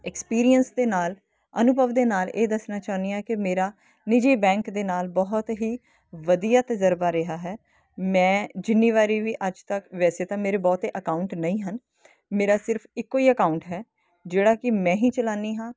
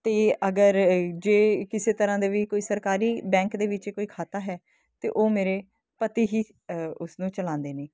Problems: constant background noise